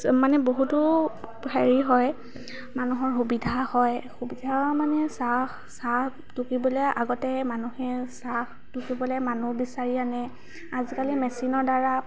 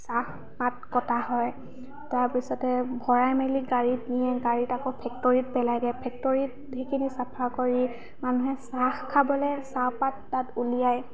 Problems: none marked